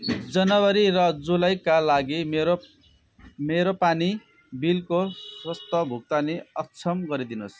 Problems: none marked